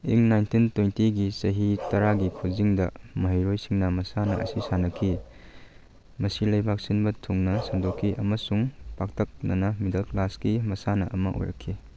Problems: none marked